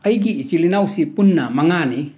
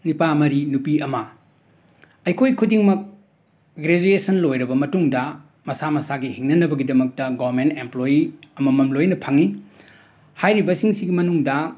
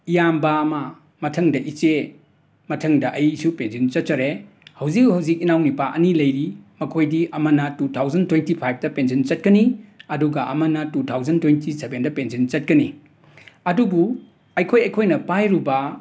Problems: background sounds at intervals